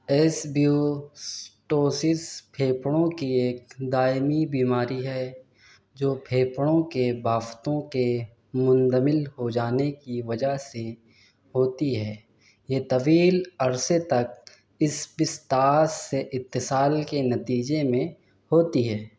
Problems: constant background noise